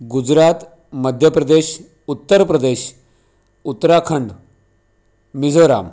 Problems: none marked